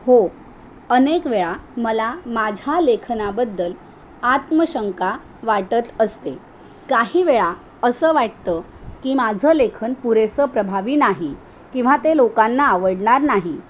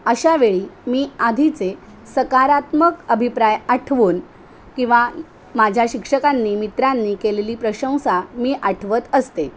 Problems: none marked